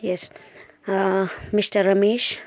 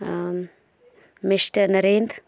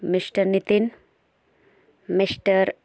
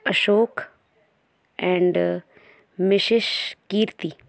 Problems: continuous background conversations